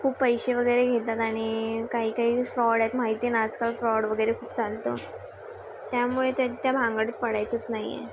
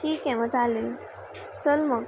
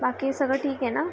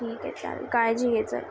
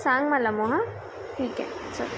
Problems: constant background noise, background conversations at intervals